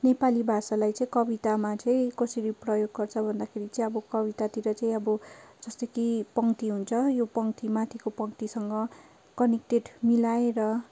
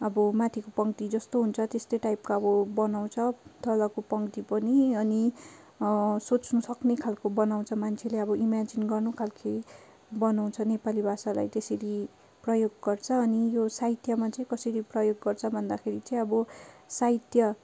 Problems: constant background noise